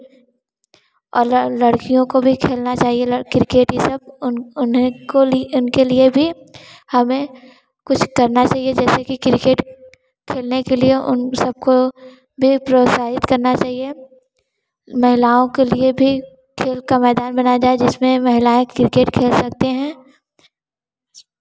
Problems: constant background noise